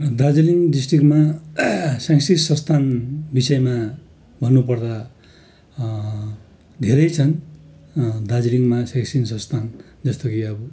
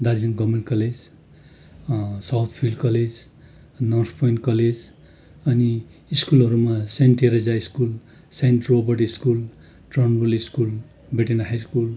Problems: constant background noise